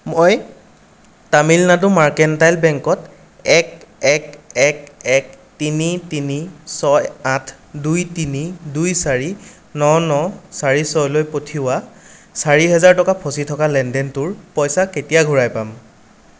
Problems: none marked